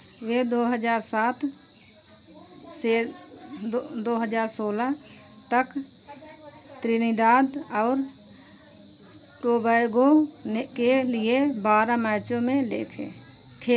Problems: none marked